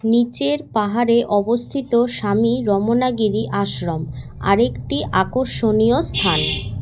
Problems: none marked